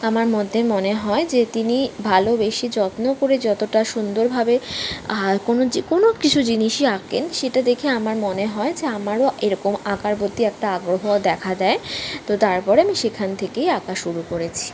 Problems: constant background noise